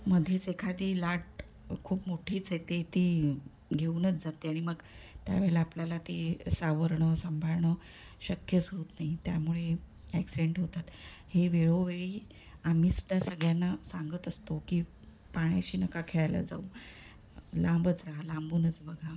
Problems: none marked